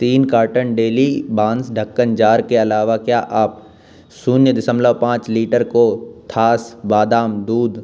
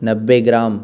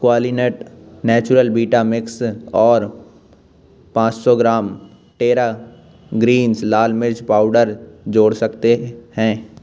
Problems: none marked